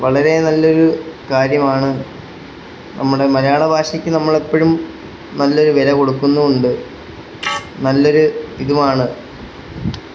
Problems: constant background noise